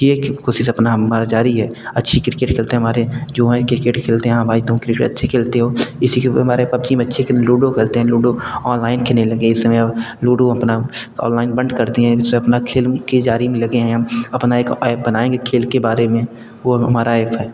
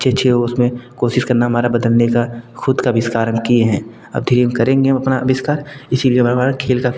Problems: constant background noise